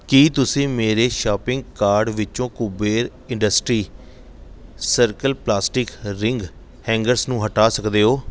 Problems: background sounds at intervals